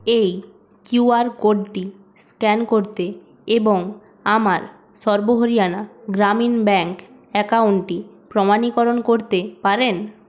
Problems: constant background noise